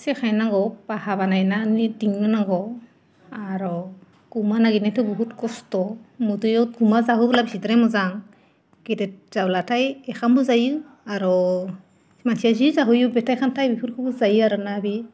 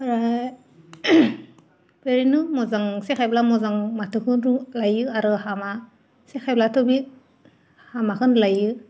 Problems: none marked